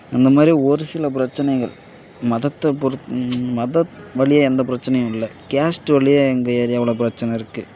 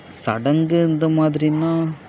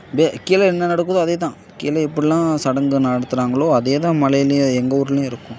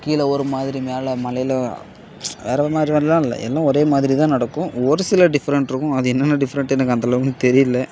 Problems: background sounds at intervals